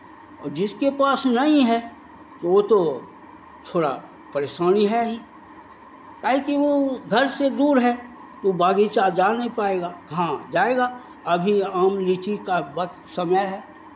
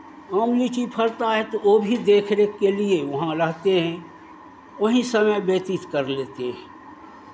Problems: constant background noise